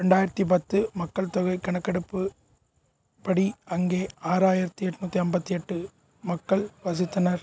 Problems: none marked